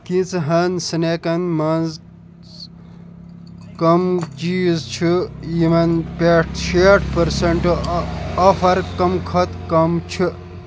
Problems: constant background noise